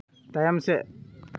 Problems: continuous background conversations